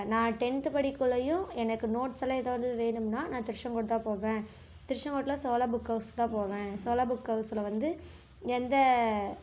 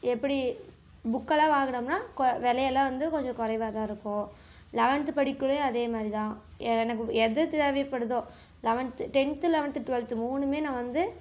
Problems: background sounds at intervals